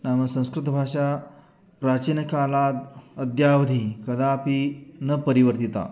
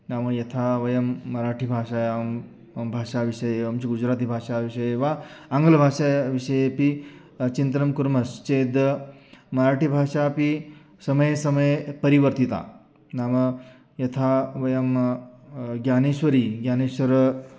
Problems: none marked